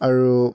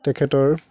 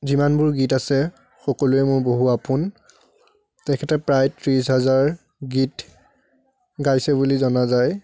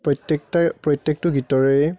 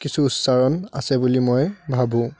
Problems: none marked